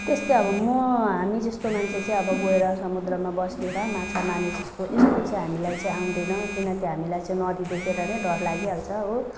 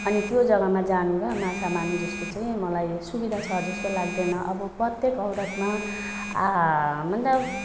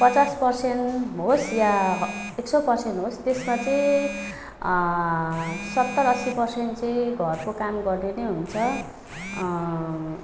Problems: background sounds at intervals